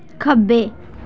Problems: none marked